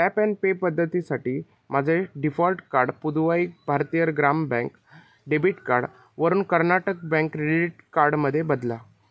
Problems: none marked